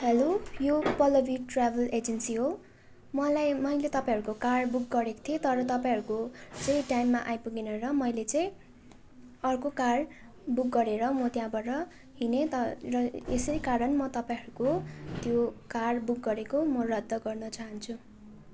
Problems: constant background noise, continuous background conversations